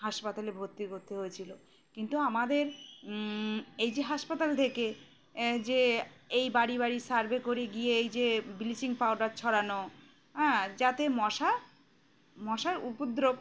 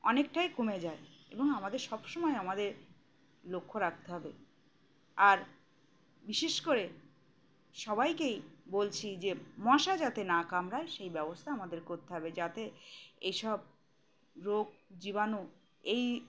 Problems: background sounds at intervals